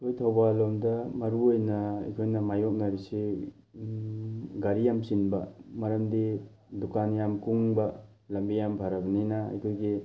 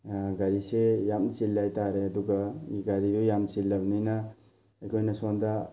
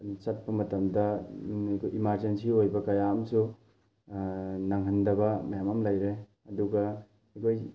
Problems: none marked